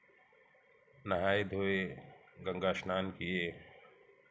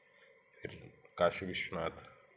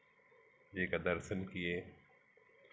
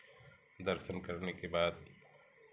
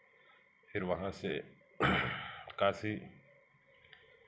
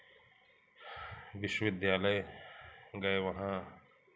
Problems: background sounds at intervals, background conversations at intervals